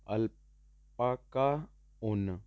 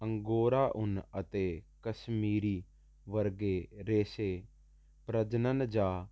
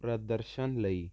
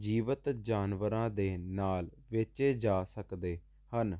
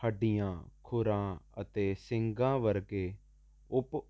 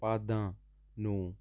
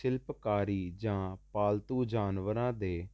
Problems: constant background noise